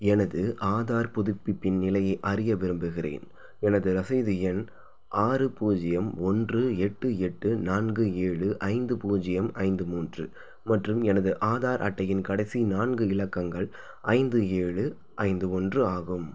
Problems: none marked